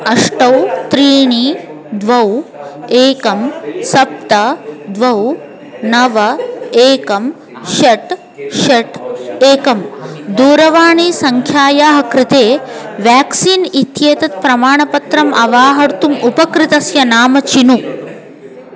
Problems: continuous background conversations